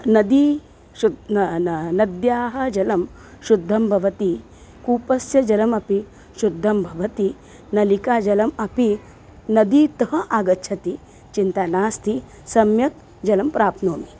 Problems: constant background noise